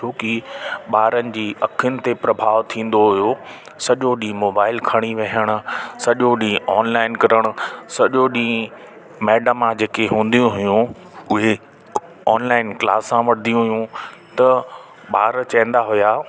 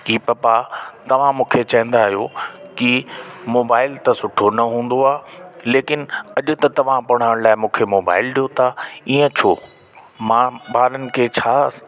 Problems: constant background noise